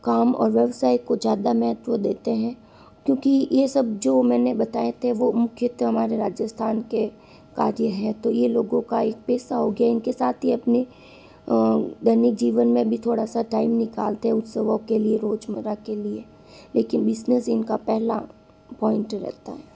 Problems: constant background noise